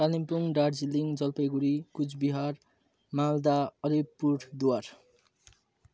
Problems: none marked